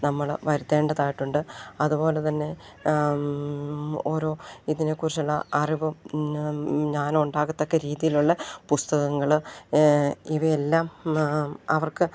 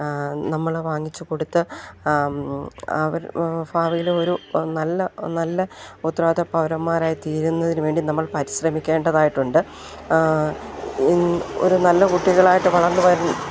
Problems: none marked